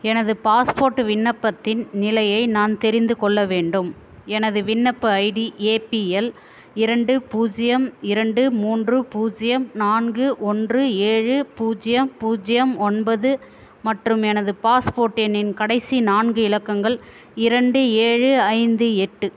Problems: constant background noise